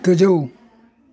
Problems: constant background noise